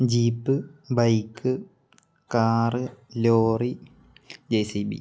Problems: none marked